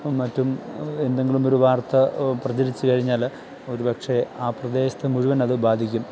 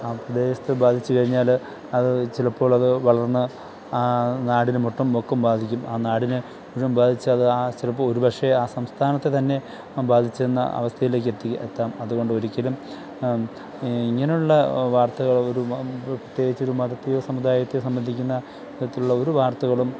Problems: constant background noise